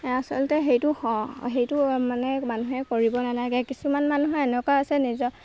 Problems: background sounds at intervals